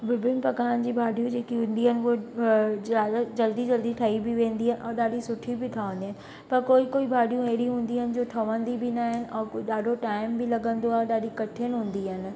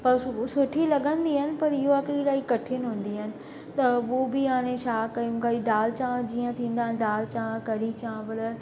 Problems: constant background noise, echo